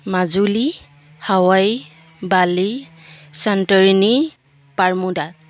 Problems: none marked